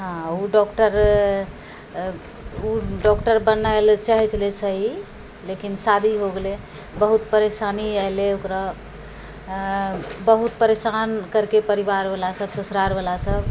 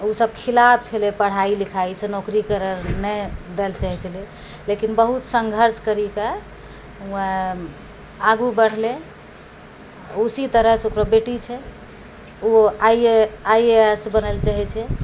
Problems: none marked